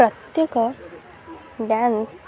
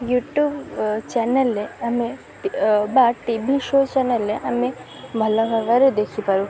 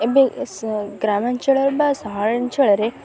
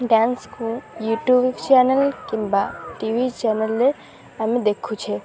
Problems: constant background noise